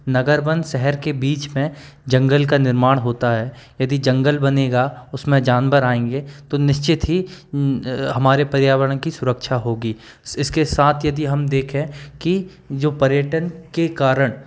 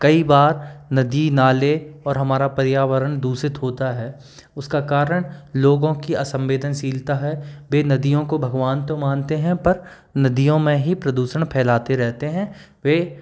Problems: background sounds at intervals